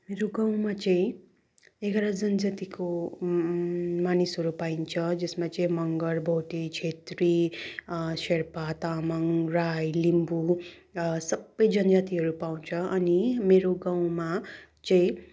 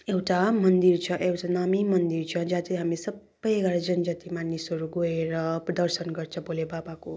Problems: none marked